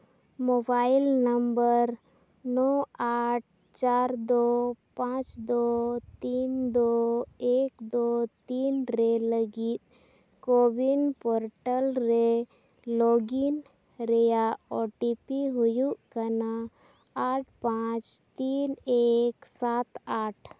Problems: none marked